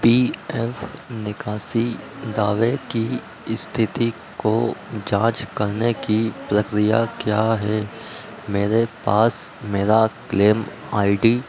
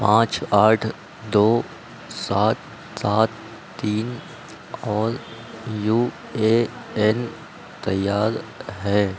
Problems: constant background noise